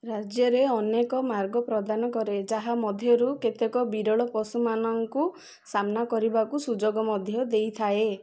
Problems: none marked